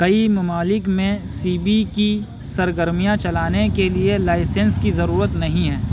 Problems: constant background noise